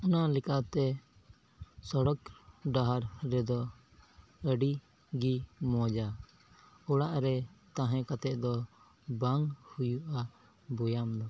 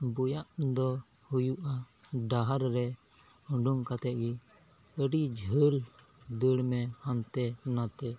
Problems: background sounds at intervals